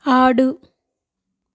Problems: none marked